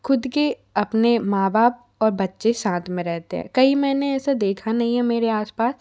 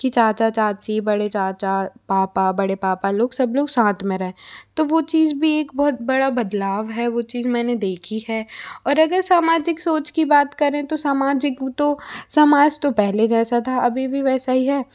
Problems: none marked